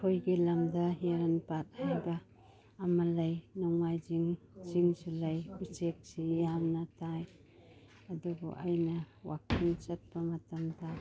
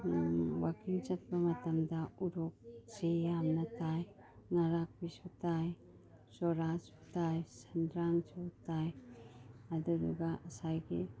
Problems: none marked